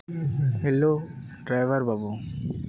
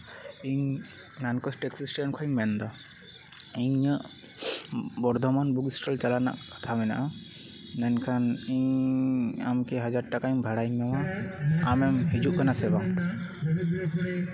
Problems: background conversations at intervals